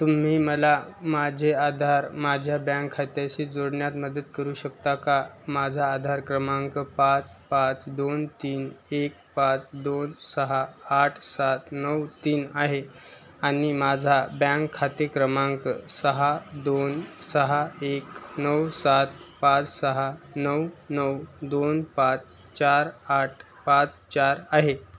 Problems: none marked